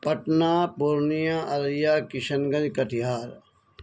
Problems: none marked